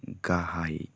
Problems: none marked